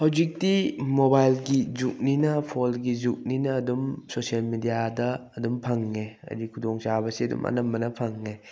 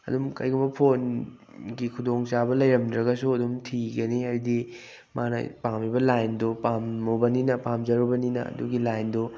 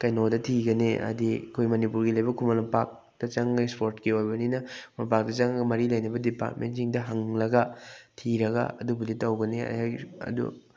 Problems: background sounds at intervals